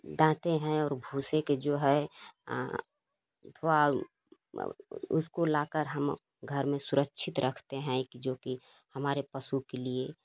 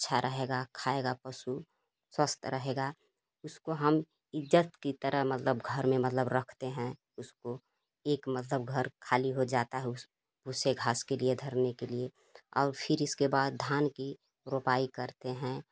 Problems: constant background noise